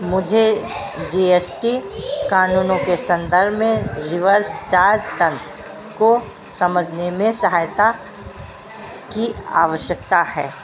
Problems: constant background noise